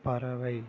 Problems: low volume